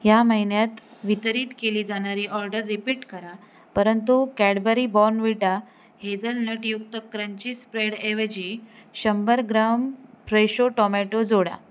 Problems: none marked